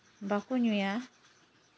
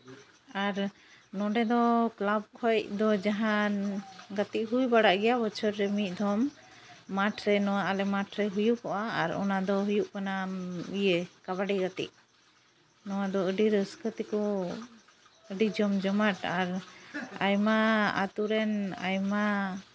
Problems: constant background noise, background conversations at intervals